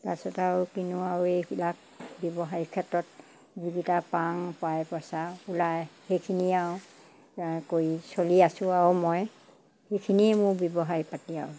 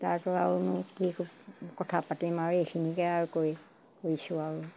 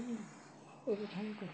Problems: constant background noise